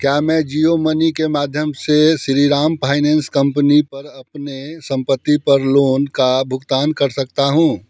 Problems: none marked